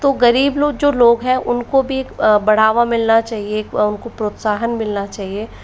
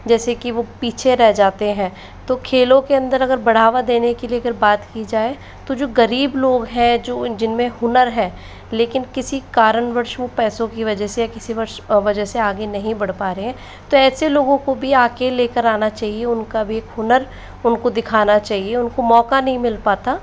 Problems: constant background noise